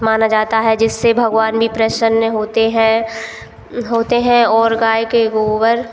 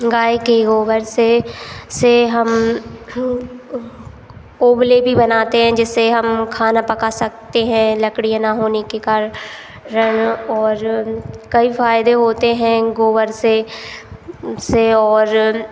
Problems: constant background noise